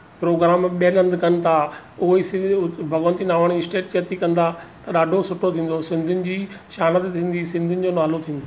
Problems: none marked